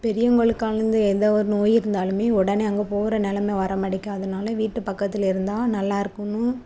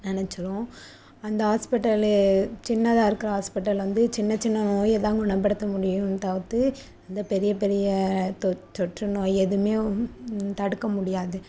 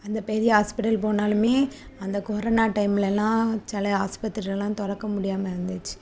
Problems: constant background noise